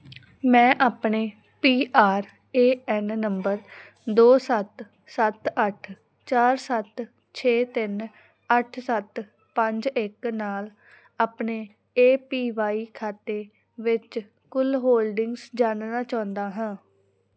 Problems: background sounds at intervals